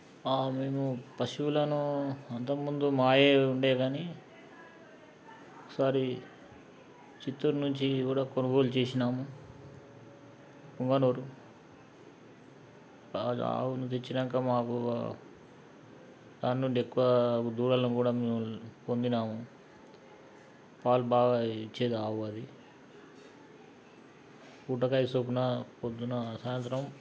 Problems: background sounds at intervals